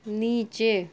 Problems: none marked